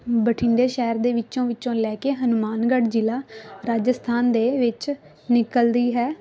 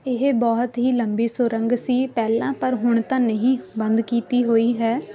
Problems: constant background noise